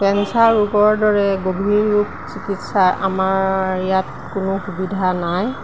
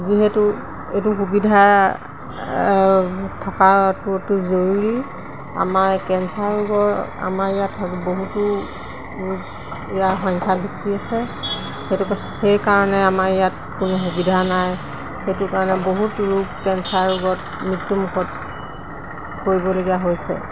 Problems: constant background noise